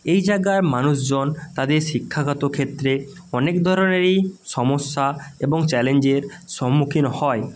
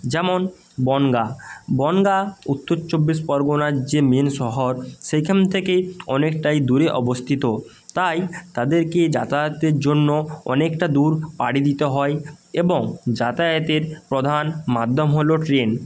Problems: none marked